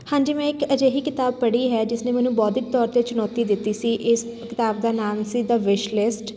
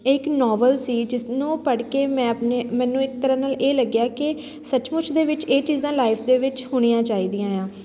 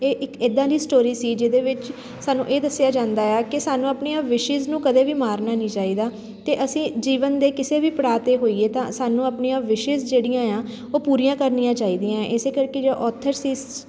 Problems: constant background noise